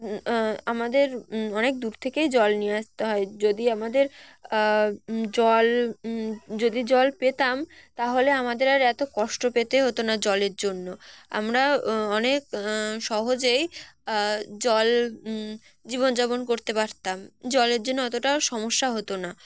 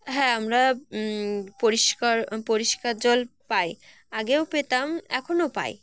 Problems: background sounds at intervals